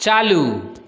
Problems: background sounds at intervals, continuous background conversations, echo